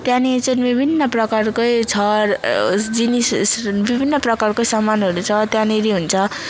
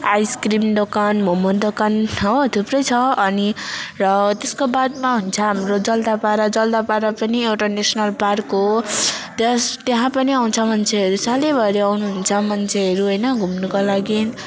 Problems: none marked